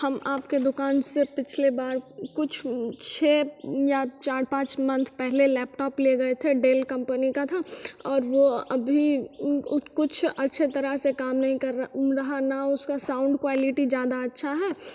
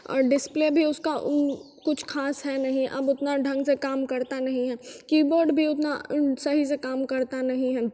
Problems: none marked